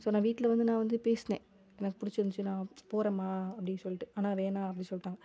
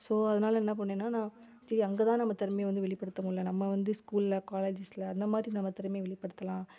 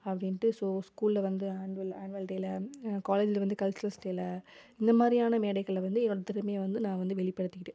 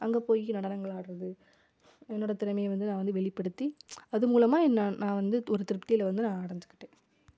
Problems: none marked